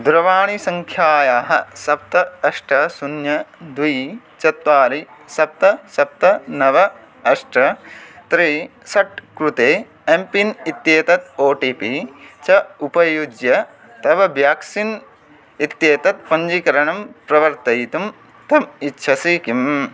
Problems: constant background noise